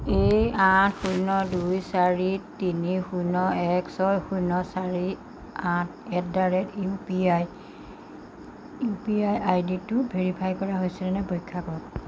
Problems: constant background noise